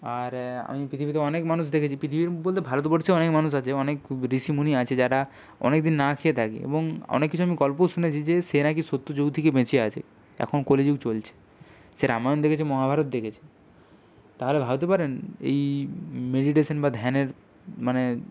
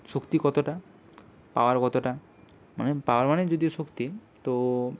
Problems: none marked